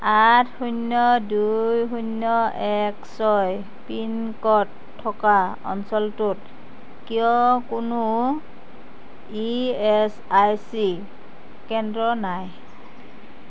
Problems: constant background noise